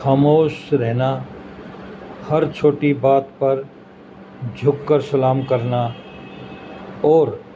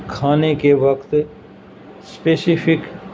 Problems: constant background noise